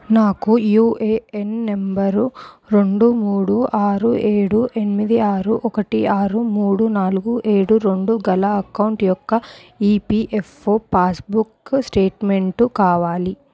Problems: none marked